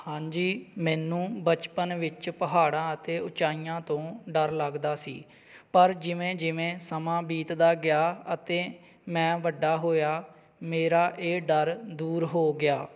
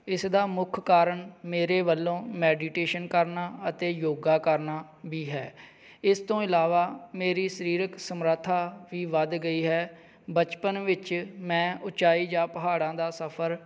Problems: background sounds at intervals